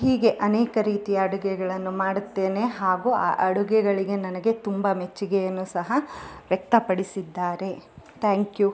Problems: none marked